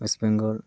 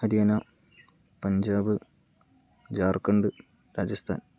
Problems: none marked